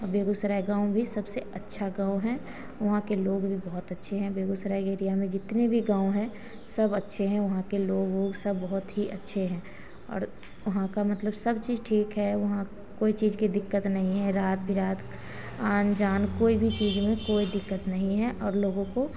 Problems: background sounds at intervals